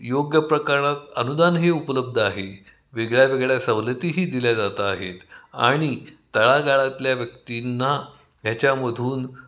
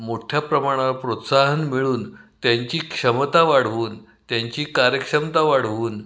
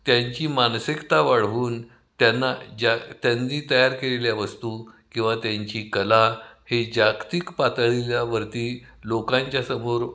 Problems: constant background noise, echo